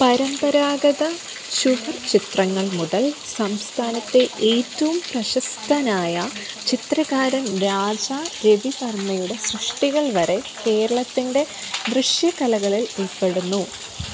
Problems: constant background noise, background conversations at intervals